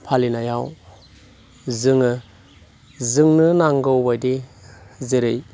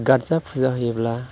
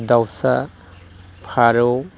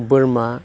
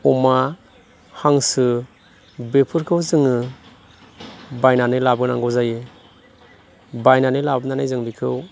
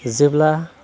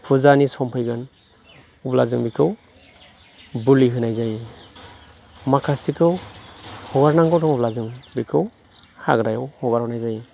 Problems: constant background noise